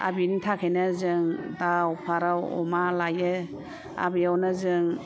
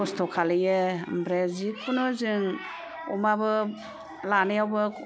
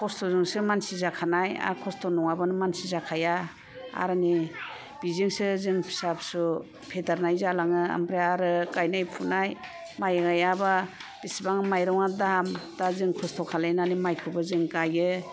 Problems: constant background noise